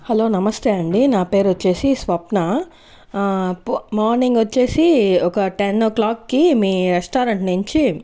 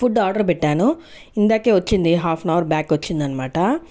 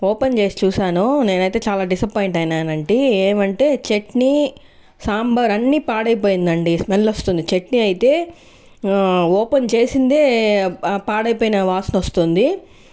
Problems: constant background noise